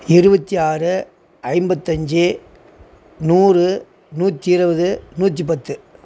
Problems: none marked